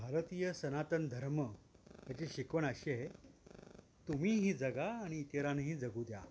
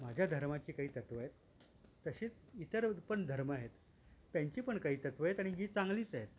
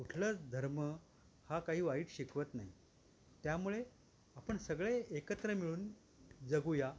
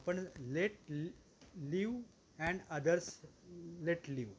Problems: constant background noise